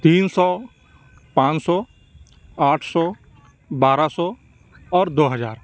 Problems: none marked